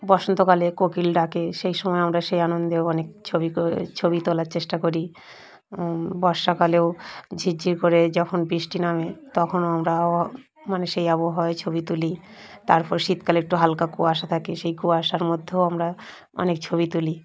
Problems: none marked